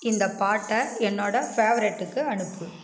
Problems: constant background noise